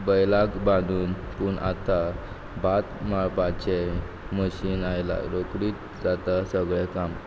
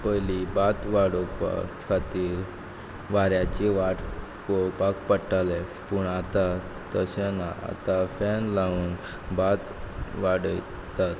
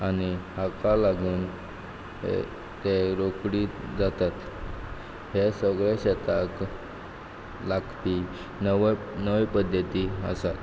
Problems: background sounds at intervals